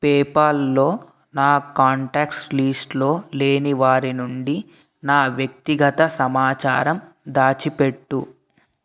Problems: none marked